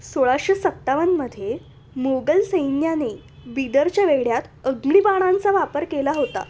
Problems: none marked